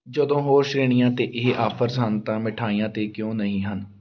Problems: background sounds at intervals